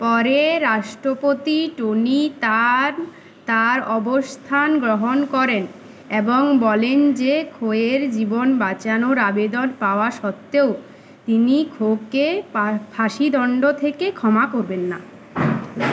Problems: constant background noise